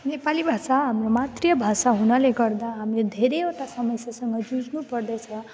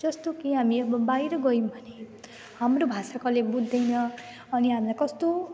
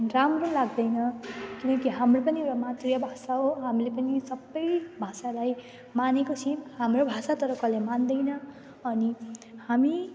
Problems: none marked